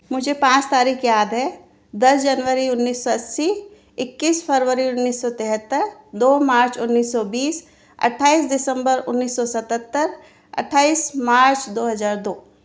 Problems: none marked